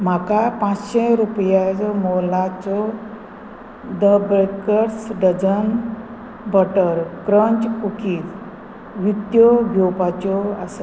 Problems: constant background noise